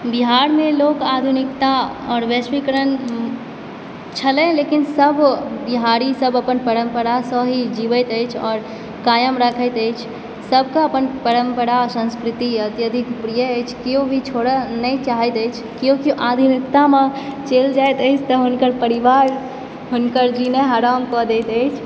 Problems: background sounds at intervals